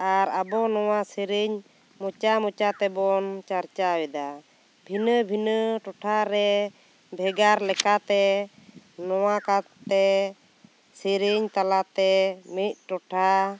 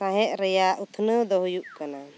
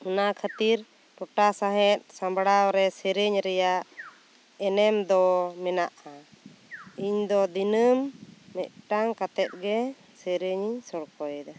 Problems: constant background noise